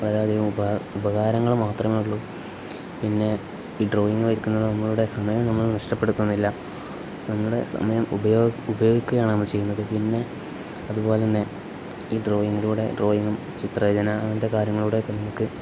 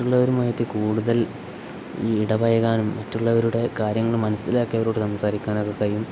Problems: none marked